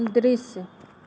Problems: constant background noise